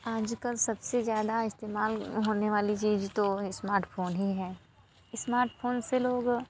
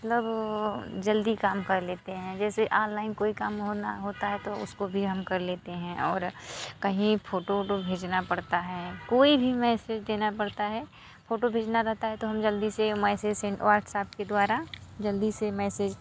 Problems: background sounds at intervals